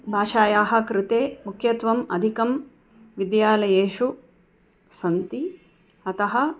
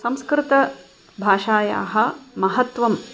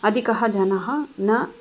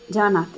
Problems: background sounds at intervals